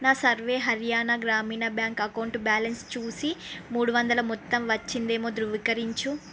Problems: constant background noise